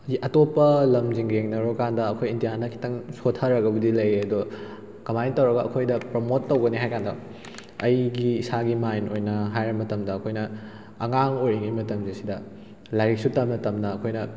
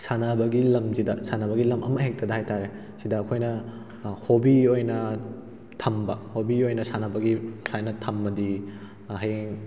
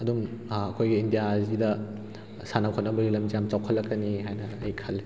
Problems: background sounds at intervals